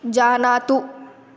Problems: none marked